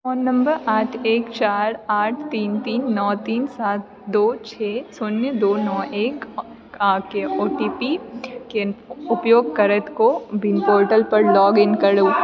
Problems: continuous background conversations